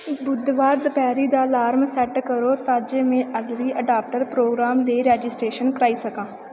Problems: constant background noise